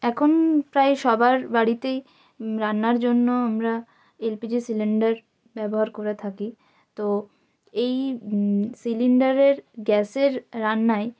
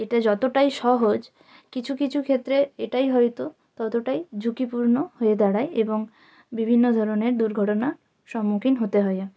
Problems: none marked